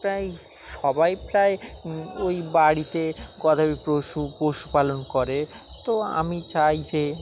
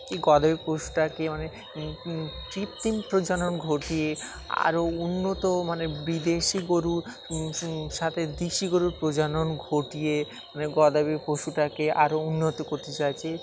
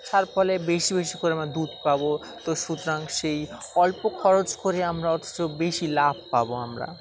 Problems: constant background noise, continuous background conversations